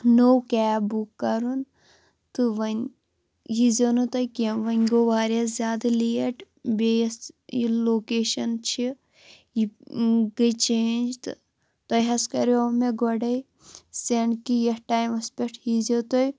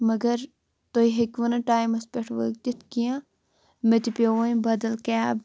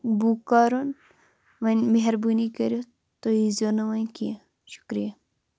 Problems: constant background noise